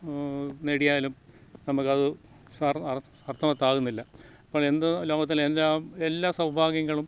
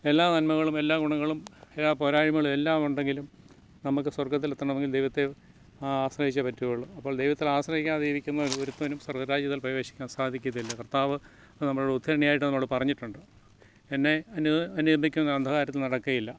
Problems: low volume